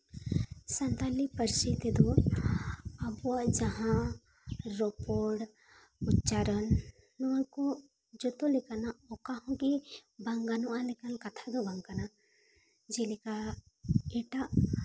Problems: constant background noise